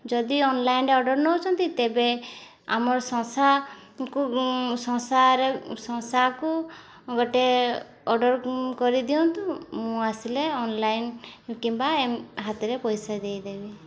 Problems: constant background noise